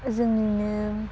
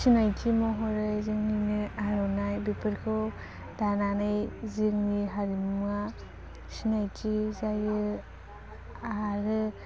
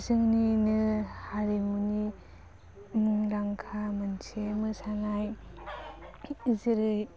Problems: low volume